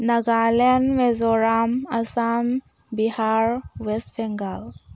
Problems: none marked